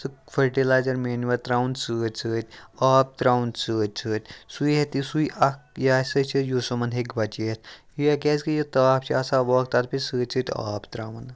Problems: none marked